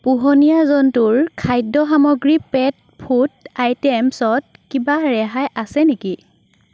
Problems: background sounds at intervals